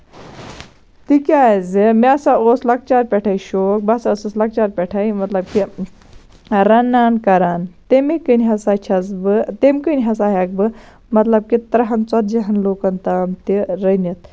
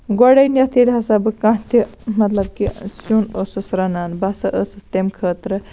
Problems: none marked